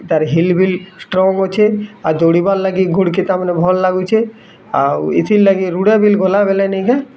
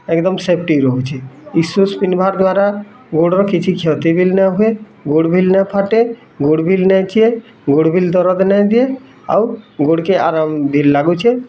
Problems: constant background noise, continuous background conversations